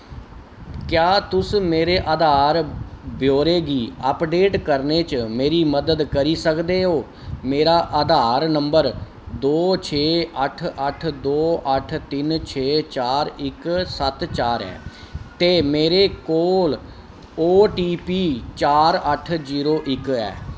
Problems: constant background noise